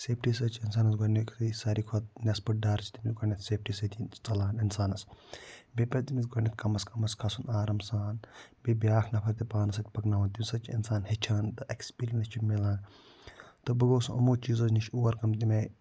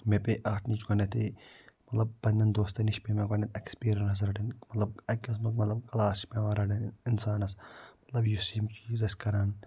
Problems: none marked